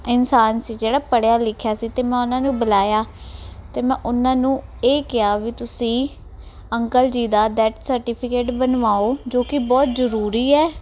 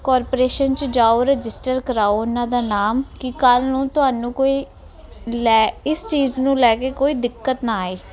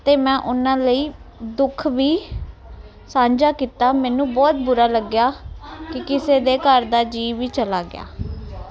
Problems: background sounds at intervals